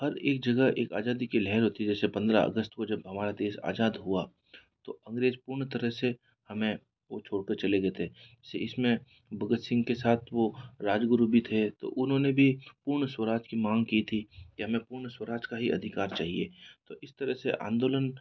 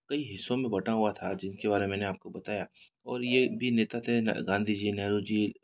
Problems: background sounds at intervals